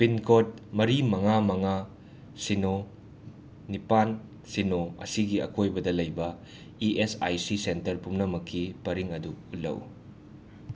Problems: none marked